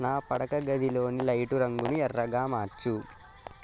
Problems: constant background noise, continuous background conversations